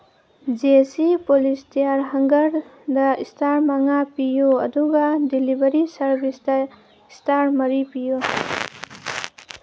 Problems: background sounds at intervals